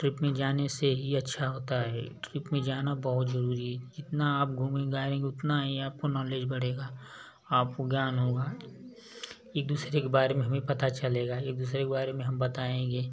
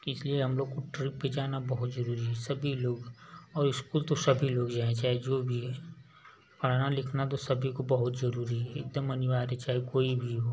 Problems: none marked